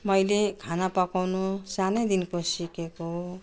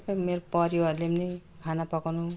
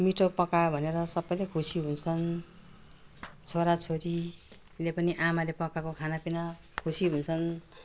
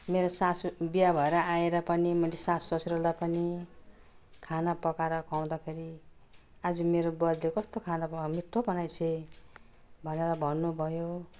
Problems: none marked